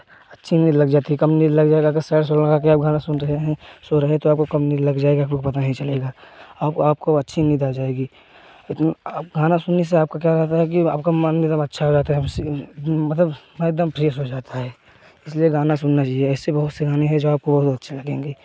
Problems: none marked